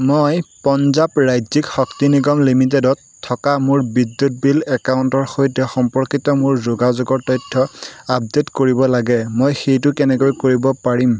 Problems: constant background noise